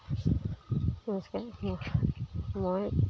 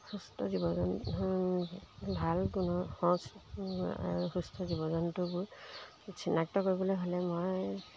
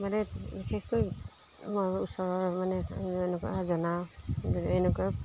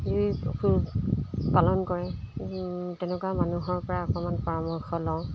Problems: constant background noise